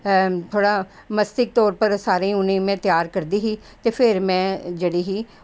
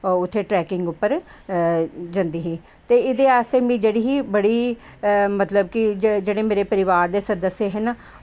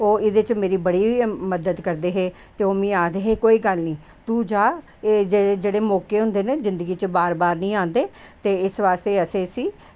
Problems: none marked